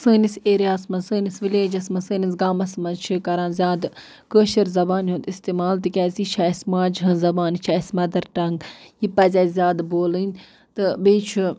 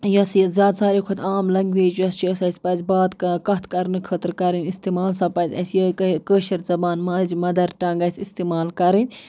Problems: none marked